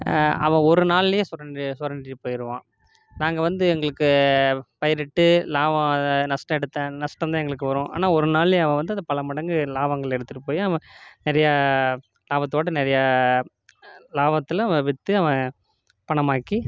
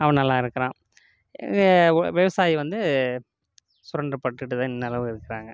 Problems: background sounds at intervals